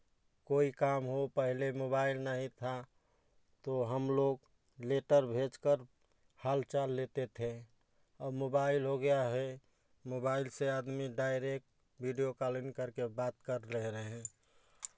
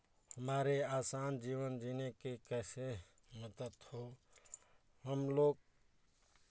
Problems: background sounds at intervals, background conversations at intervals